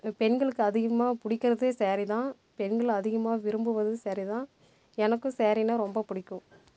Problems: background sounds at intervals